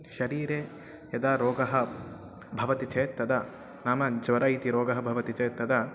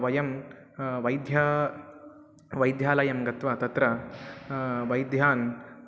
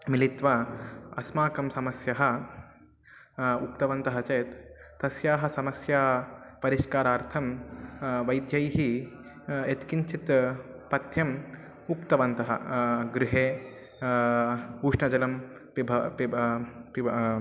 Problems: constant background noise, continuous background conversations